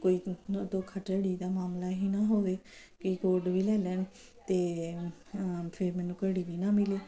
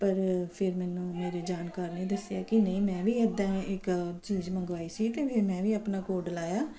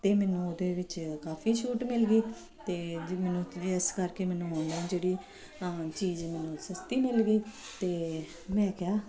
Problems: constant background noise